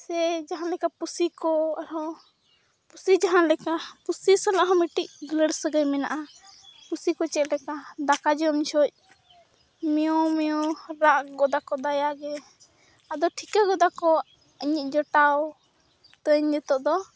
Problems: background sounds at intervals, background conversations at intervals